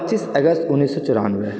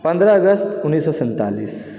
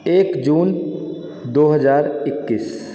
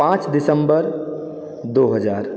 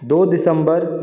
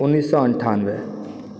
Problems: background sounds at intervals, background conversations at intervals, echo